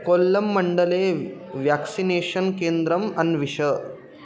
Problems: constant background noise